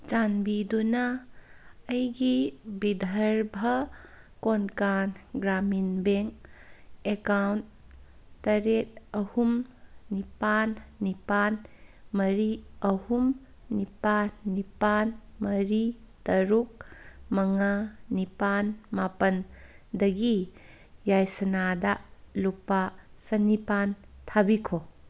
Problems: background sounds at intervals